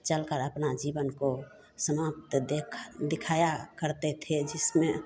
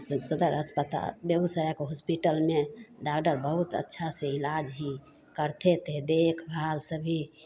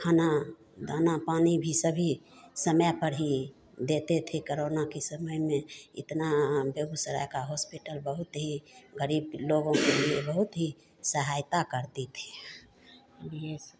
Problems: constant background noise